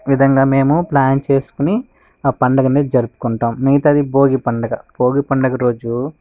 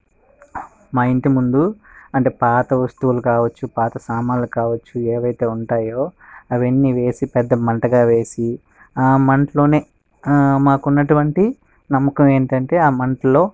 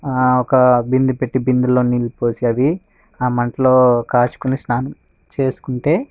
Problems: background sounds at intervals